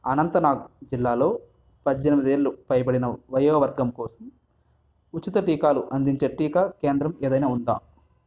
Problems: constant background noise